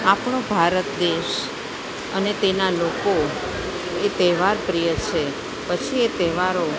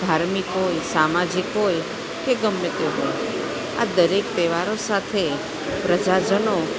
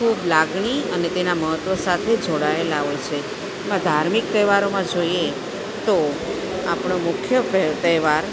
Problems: constant background noise